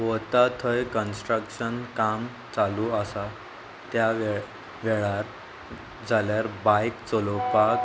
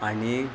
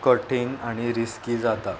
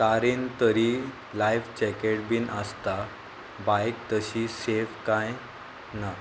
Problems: constant background noise, background conversations at intervals